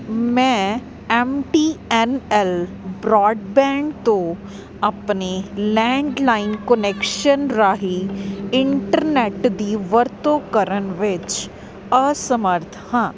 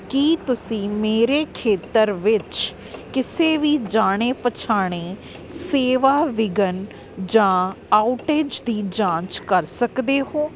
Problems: constant background noise